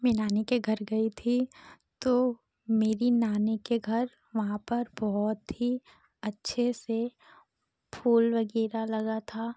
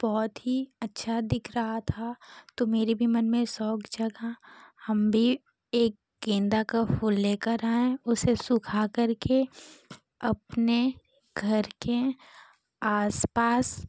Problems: constant background noise